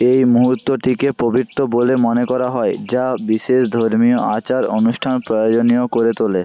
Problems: constant background noise